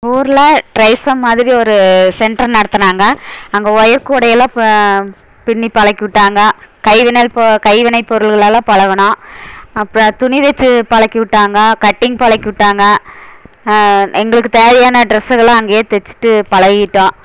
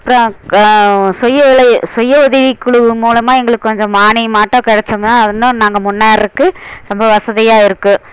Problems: constant background noise